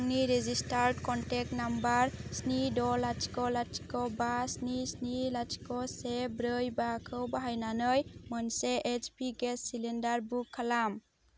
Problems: none marked